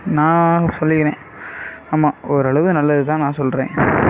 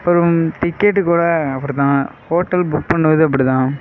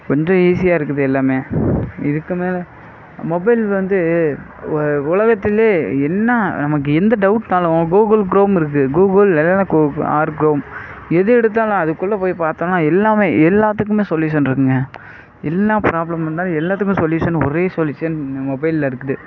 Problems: background sounds at intervals